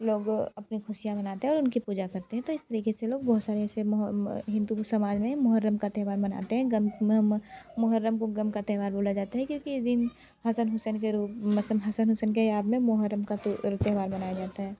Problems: none marked